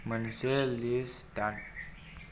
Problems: low volume